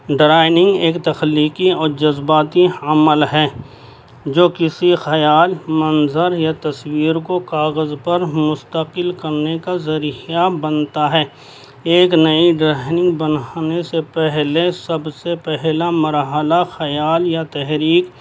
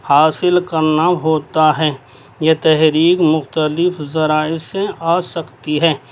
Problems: constant background noise